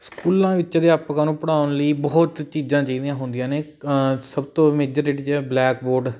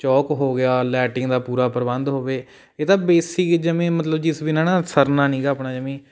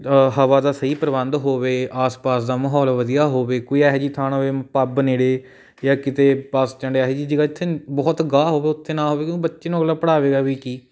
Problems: none marked